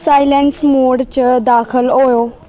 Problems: none marked